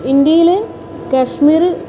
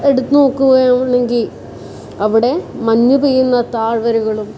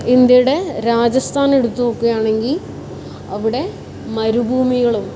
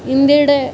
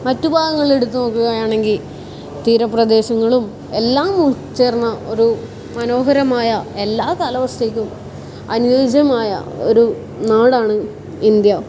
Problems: constant background noise